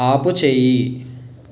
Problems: constant background noise